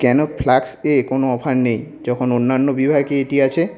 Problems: continuous background conversations